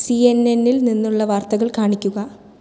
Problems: none marked